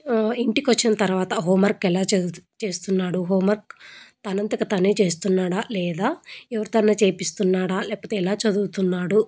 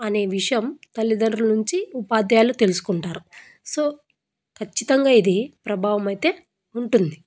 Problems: none marked